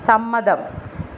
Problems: constant background noise